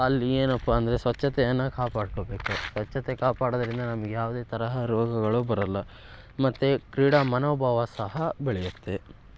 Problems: background sounds at intervals